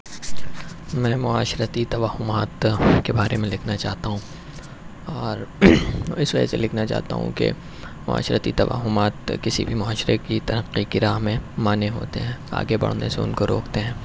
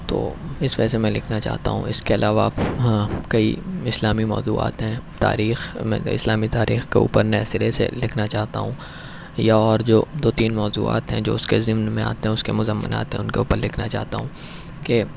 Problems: none marked